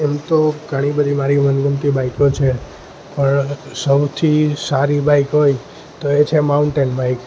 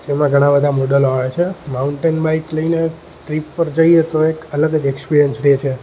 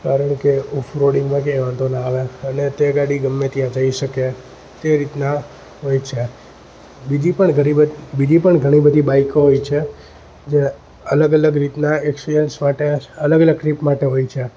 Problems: none marked